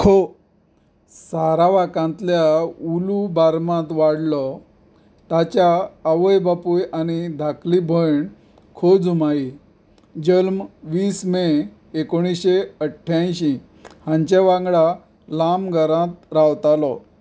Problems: background sounds at intervals